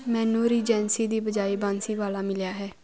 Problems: constant background noise